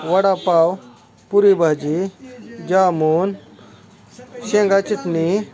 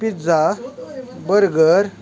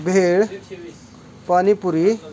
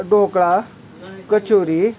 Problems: background conversations at intervals